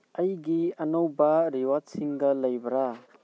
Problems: background conversations at intervals